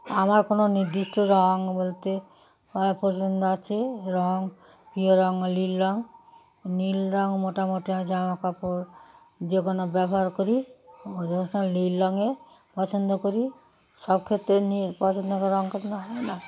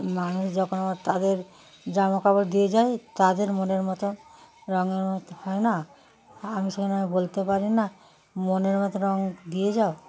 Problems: constant background noise, continuous background conversations